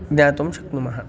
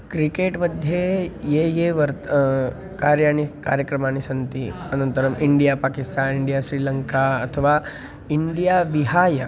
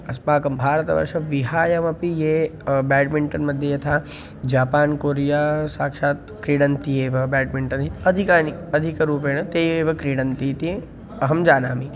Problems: constant background noise